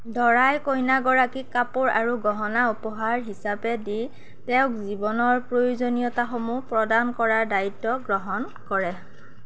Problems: none marked